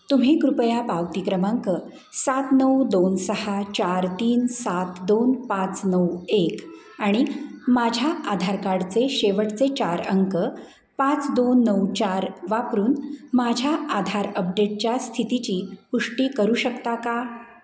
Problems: background conversations at intervals